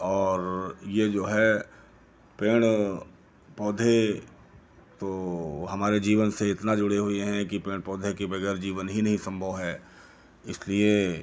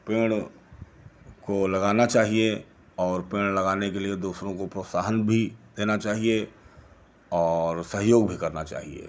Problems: none marked